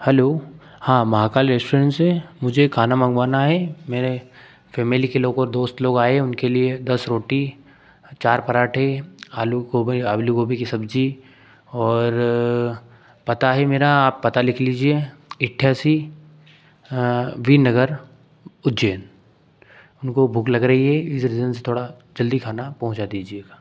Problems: background sounds at intervals